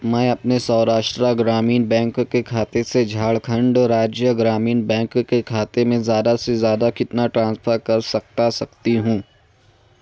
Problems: none marked